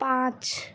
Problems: constant background noise